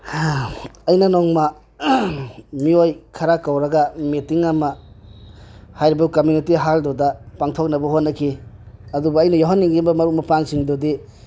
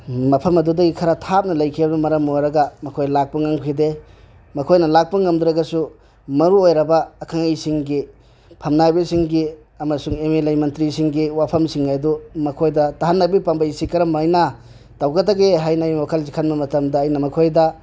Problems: none marked